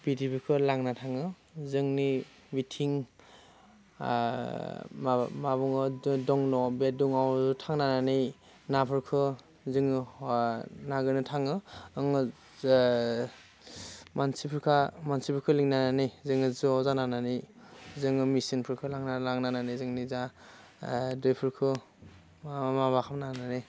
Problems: constant background noise